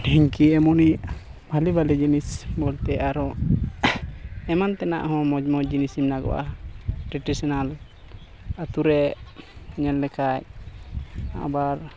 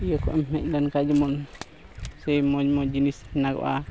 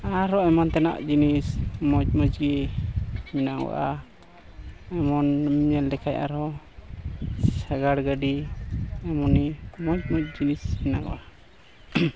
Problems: constant background noise, background conversations at intervals